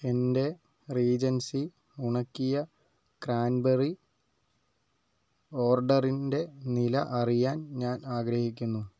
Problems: low volume